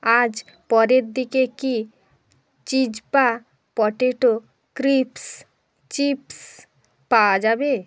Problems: constant background noise